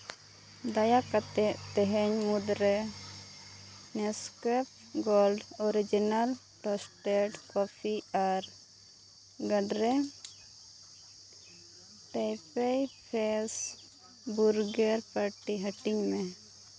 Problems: background sounds at intervals